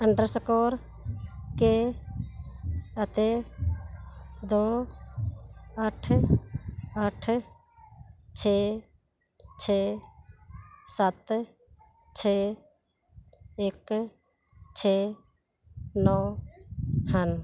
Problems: background sounds at intervals